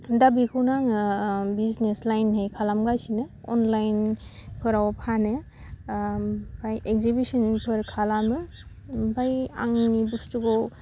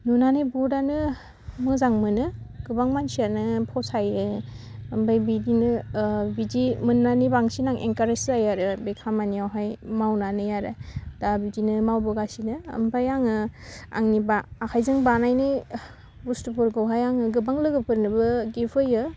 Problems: none marked